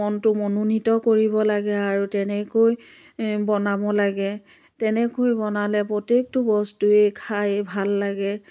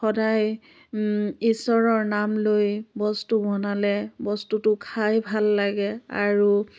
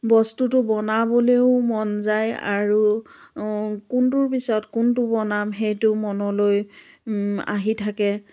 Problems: constant background noise